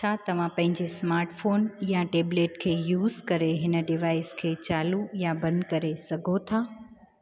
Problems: constant background noise